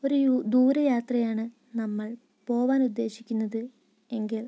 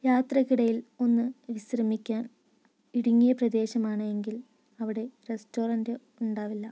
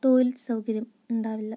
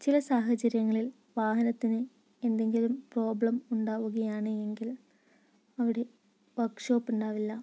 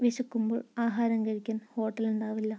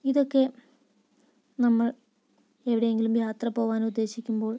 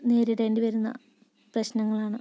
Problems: low volume